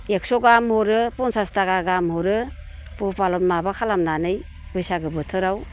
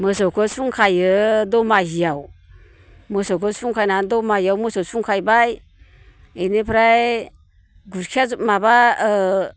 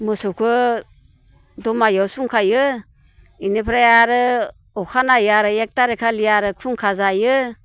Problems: constant background noise